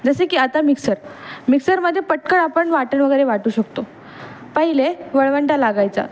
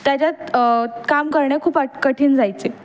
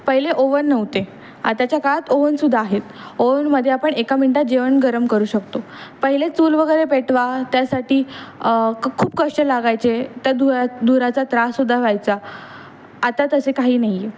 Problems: constant background noise, background conversations at intervals